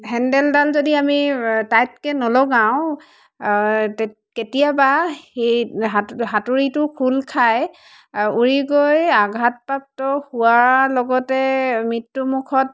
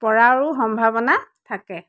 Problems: constant background noise